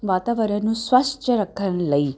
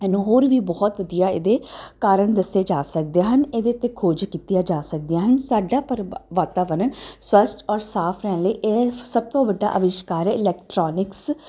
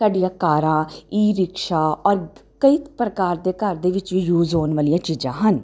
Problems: none marked